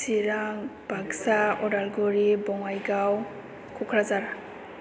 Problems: none marked